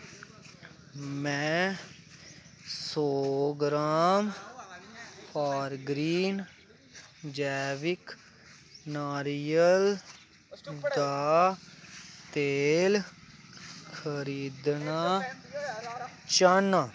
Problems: none marked